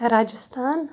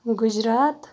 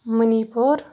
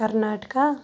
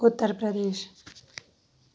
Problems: background sounds at intervals